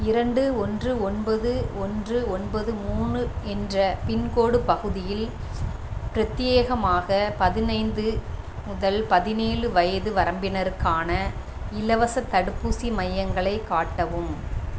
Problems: none marked